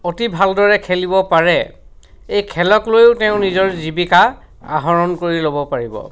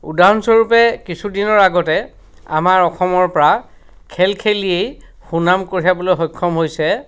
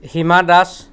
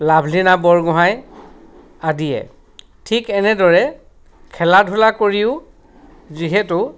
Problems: background sounds at intervals